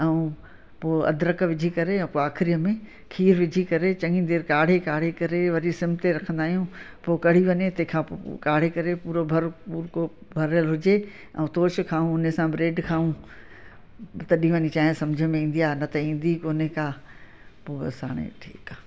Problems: constant background noise, echo